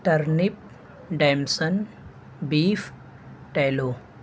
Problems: constant background noise